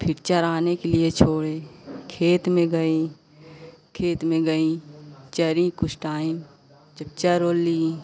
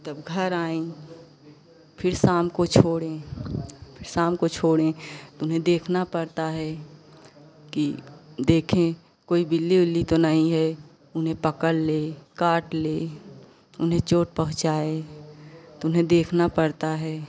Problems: constant background noise